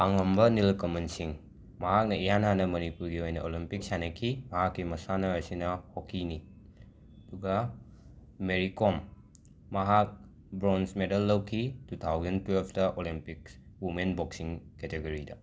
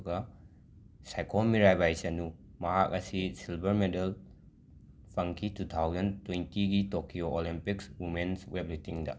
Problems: background sounds at intervals